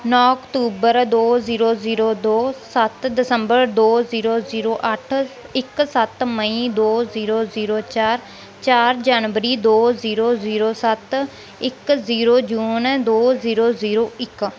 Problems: background sounds at intervals